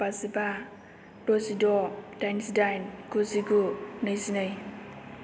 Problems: none marked